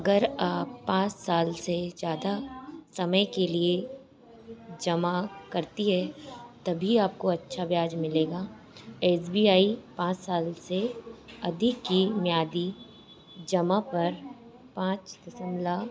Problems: none marked